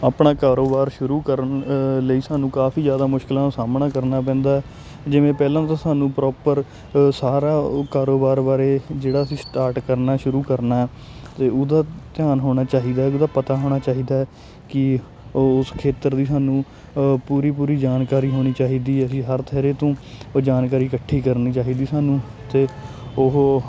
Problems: constant background noise